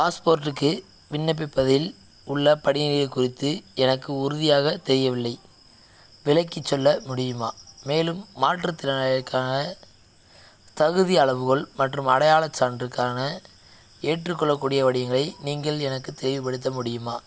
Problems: none marked